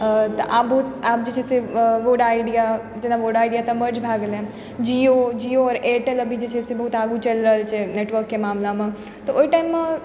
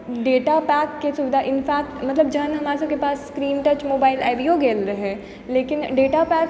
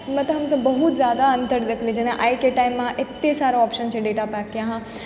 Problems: background sounds at intervals